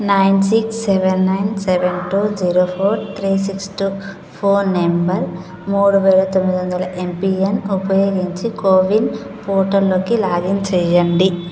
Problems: constant background noise